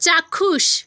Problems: constant background noise